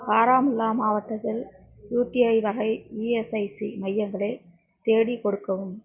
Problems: none marked